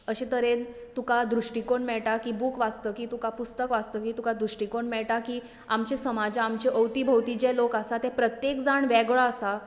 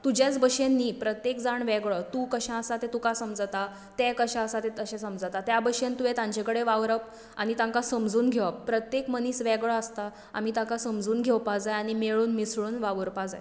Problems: background sounds at intervals